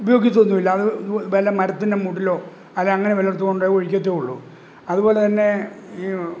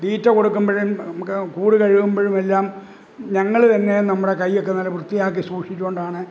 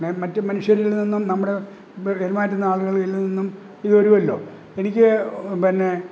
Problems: background sounds at intervals